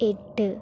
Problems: none marked